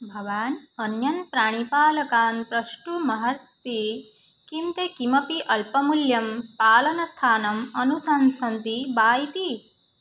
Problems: none marked